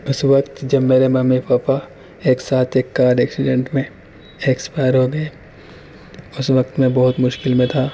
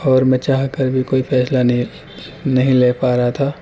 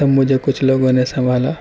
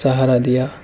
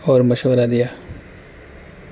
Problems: constant background noise, background conversations at intervals